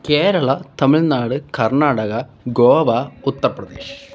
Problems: background sounds at intervals